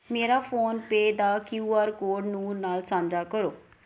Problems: background sounds at intervals